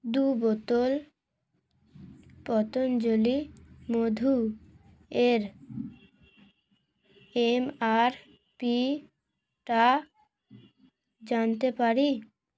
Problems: none marked